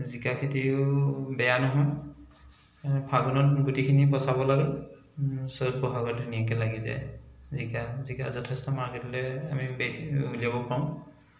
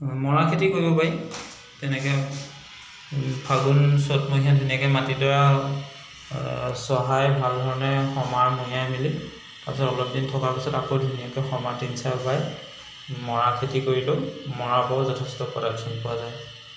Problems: constant background noise